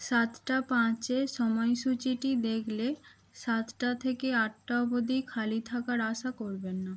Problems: constant background noise